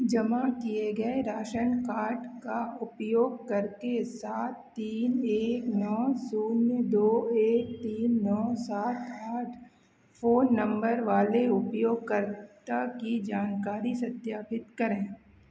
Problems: none marked